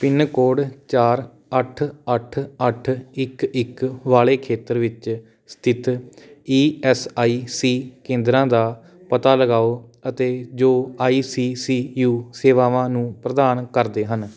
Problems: background sounds at intervals